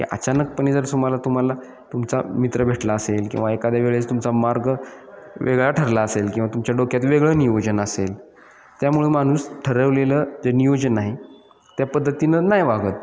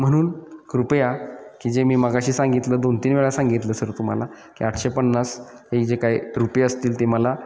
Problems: none marked